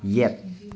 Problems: continuous background conversations